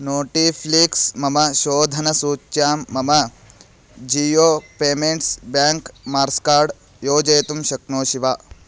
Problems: constant background noise